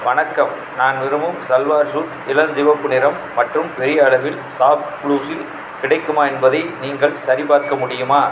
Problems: background sounds at intervals, background conversations at intervals